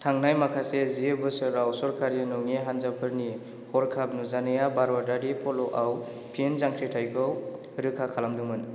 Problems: none marked